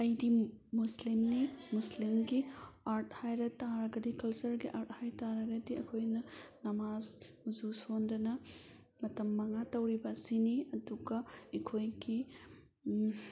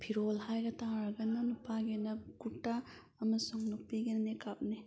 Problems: background conversations at intervals